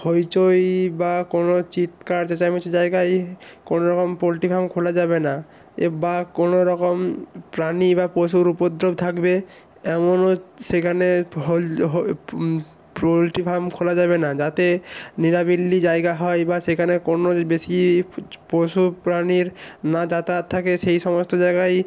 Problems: constant background noise